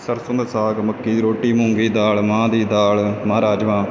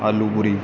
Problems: none marked